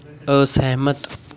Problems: continuous background conversations